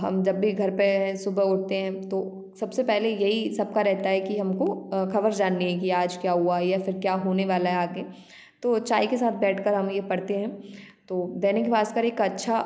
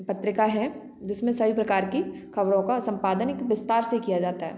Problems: constant background noise